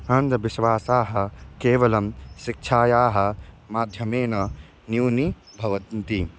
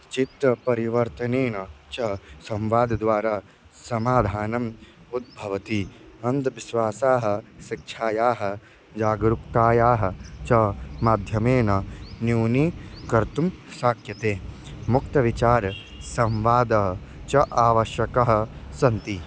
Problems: constant background noise